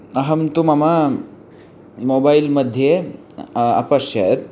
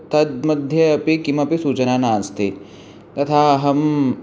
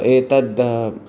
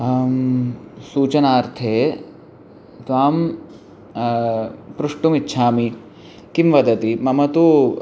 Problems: none marked